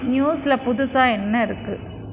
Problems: constant background noise